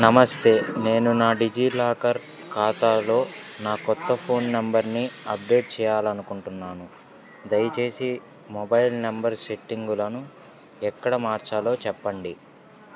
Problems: none marked